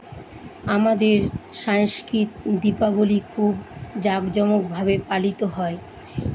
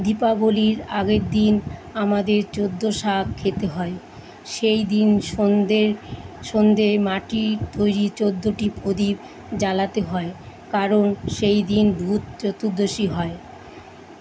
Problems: constant background noise